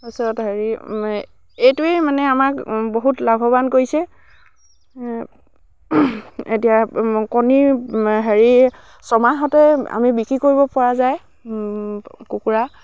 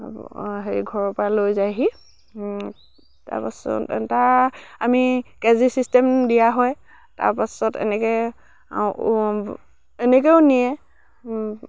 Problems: low volume